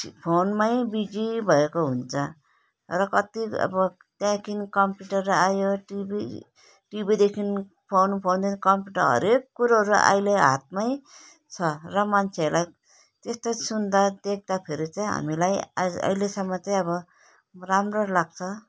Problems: none marked